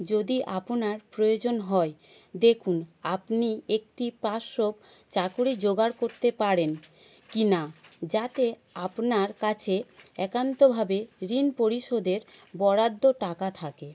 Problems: none marked